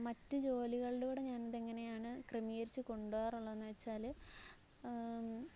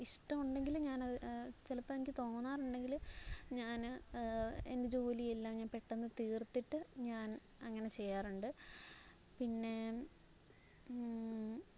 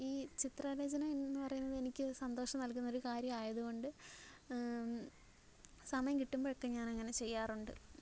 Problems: background sounds at intervals, low volume